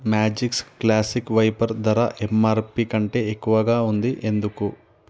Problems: none marked